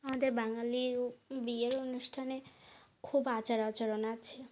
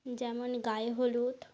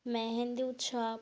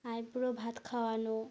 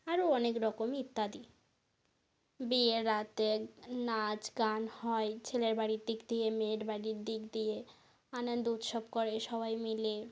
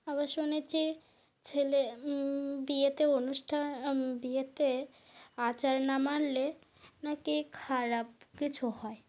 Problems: none marked